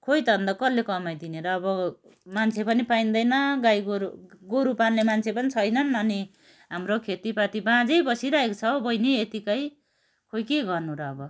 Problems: none marked